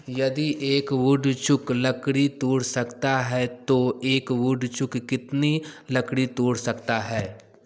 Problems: background sounds at intervals, continuous background conversations, echo